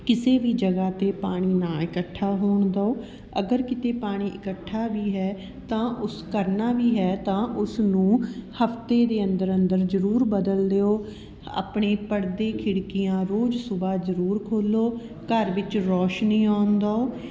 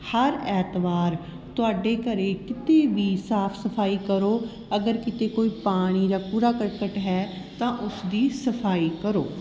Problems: constant background noise, background conversations at intervals